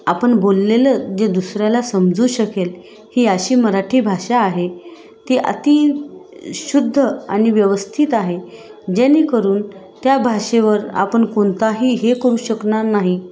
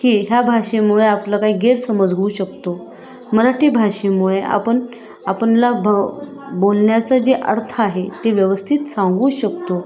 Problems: constant background noise, background conversations at intervals